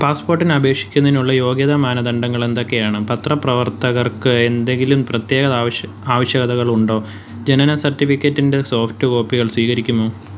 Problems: constant background noise